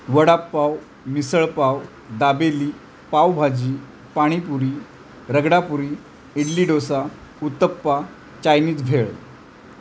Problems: none marked